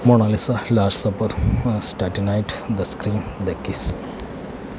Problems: none marked